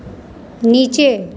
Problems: constant background noise